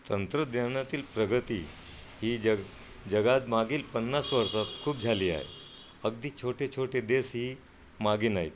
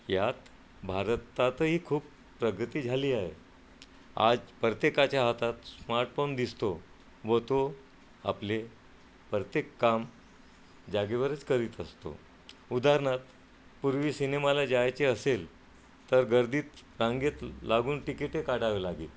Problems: none marked